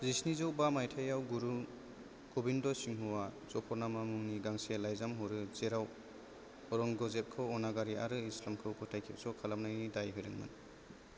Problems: none marked